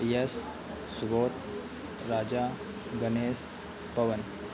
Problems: constant background noise